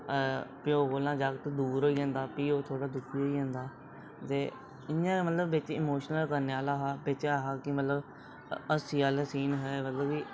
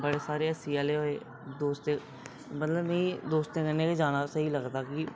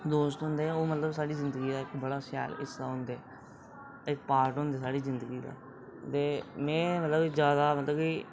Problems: background sounds at intervals, low volume